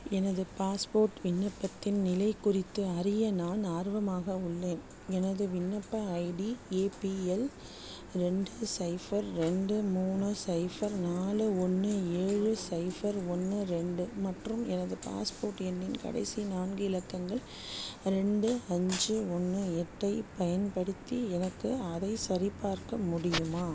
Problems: low volume